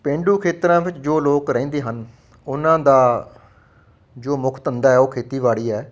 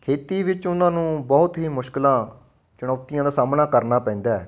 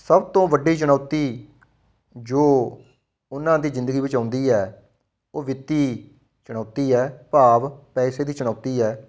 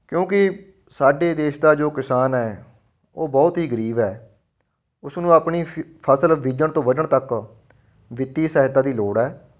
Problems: none marked